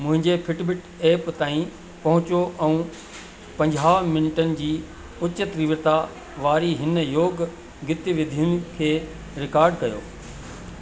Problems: constant background noise, echo